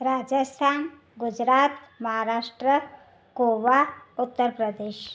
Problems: none marked